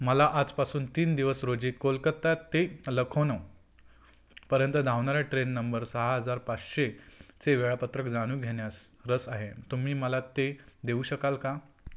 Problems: constant background noise